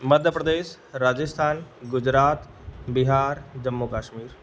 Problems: background sounds at intervals